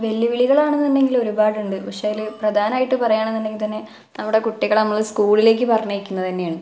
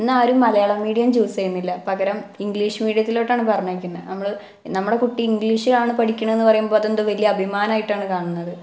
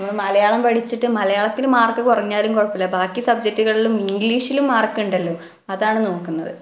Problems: none marked